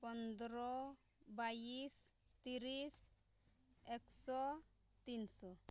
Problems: none marked